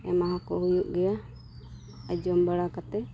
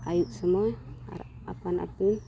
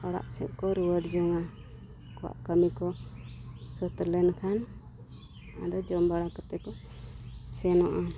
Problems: constant background noise, low volume